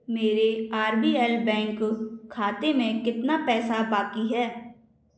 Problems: echo